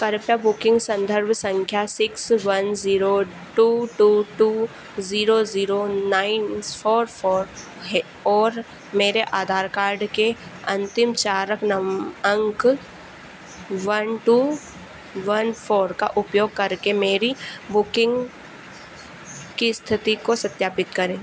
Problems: constant background noise